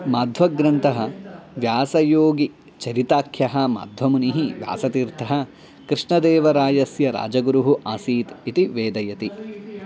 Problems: background sounds at intervals